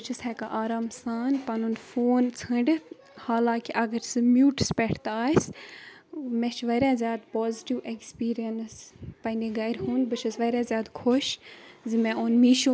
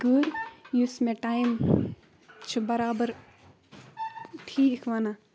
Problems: constant background noise, background conversations at intervals